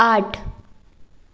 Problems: background sounds at intervals